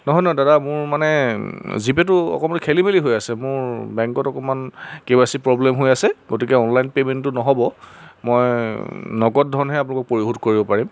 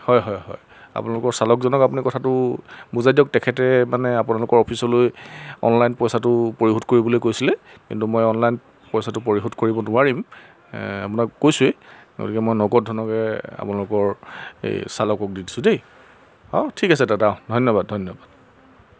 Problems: none marked